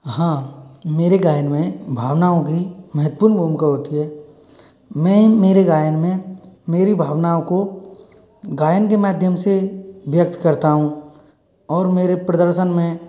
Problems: background sounds at intervals